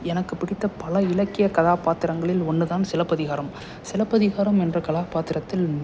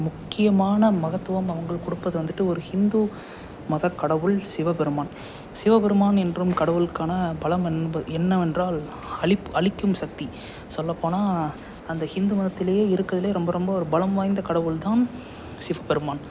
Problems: constant background noise, background conversations at intervals